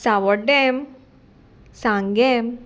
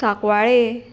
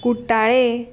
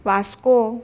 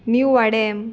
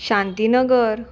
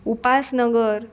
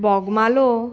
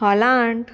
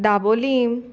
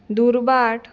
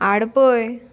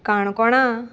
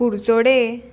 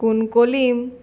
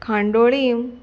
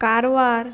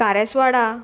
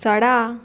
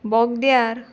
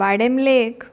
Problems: none marked